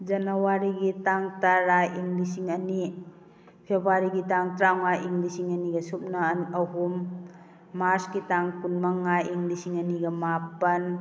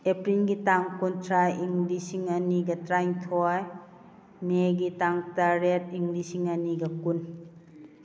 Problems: none marked